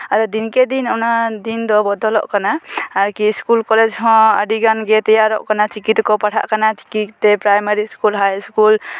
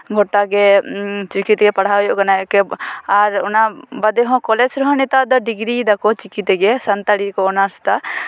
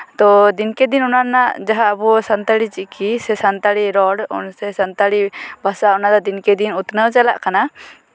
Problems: none marked